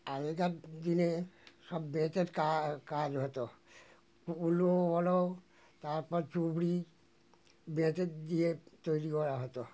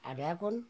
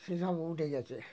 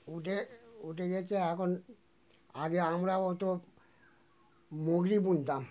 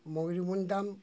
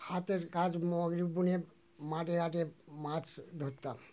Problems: constant background noise